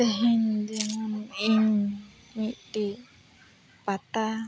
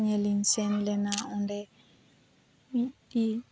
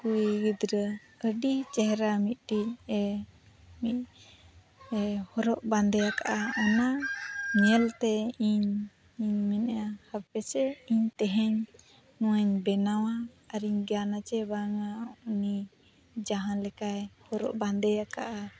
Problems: none marked